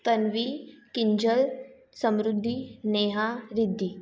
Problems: background sounds at intervals, echo